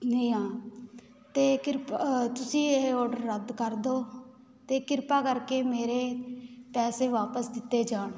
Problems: none marked